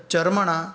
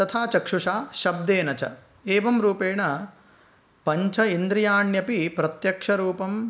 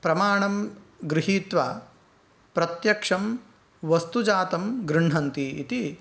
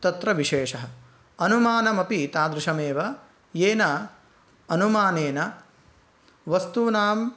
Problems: none marked